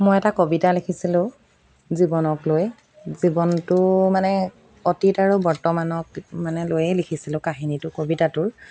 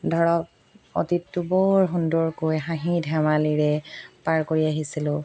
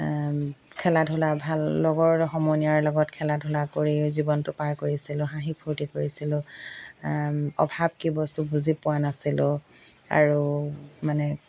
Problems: background sounds at intervals